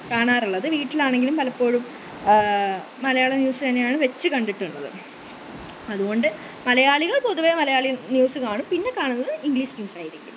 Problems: none marked